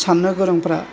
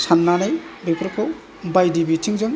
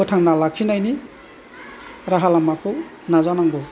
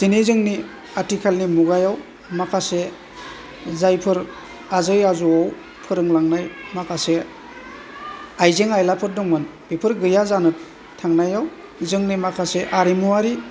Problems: low volume